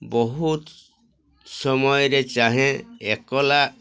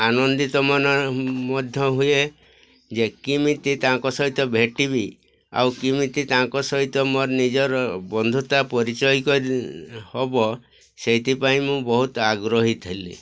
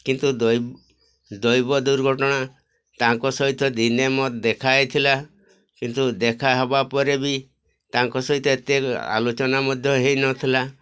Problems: constant background noise, continuous background conversations